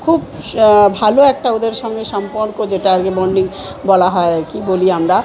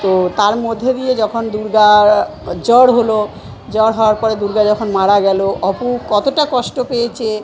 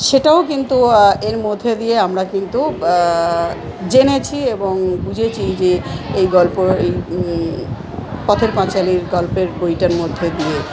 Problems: constant background noise, continuous background conversations